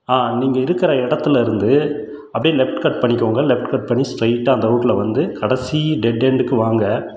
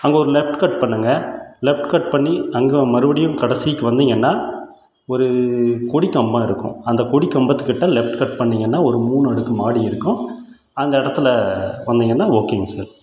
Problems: none marked